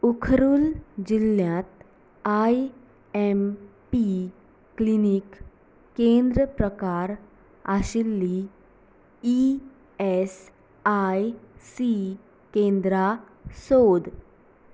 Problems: background sounds at intervals